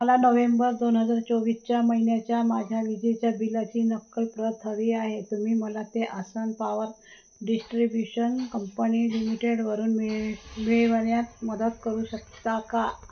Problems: none marked